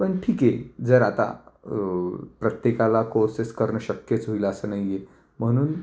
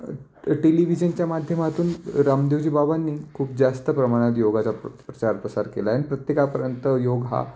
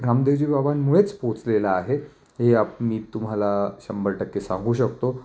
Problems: constant background noise, echo